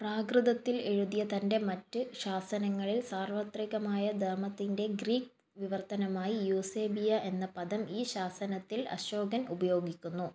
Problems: none marked